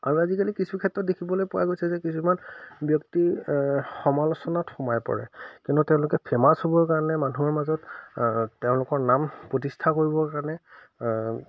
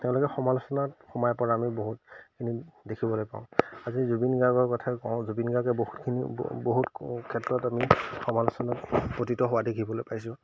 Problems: none marked